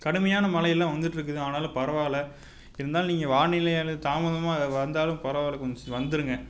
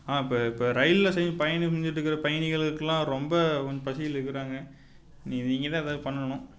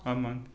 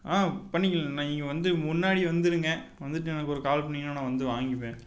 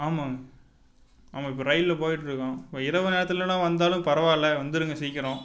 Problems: constant background noise